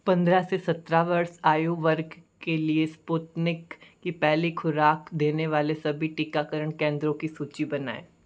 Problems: none marked